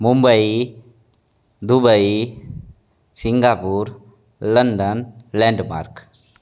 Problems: none marked